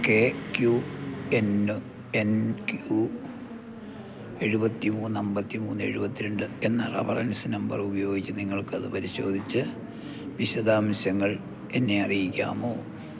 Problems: low volume